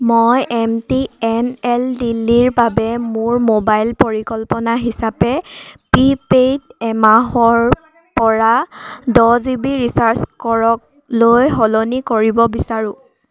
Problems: background sounds at intervals